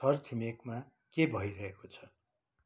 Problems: none marked